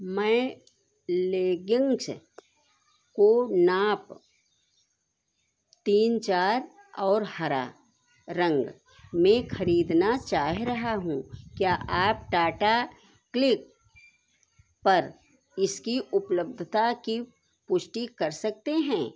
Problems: none marked